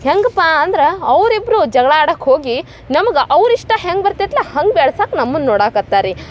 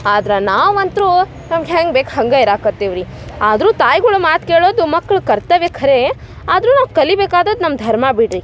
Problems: none marked